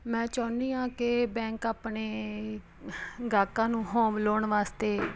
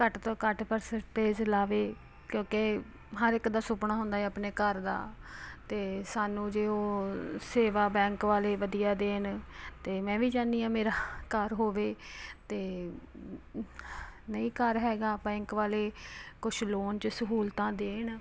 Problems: constant background noise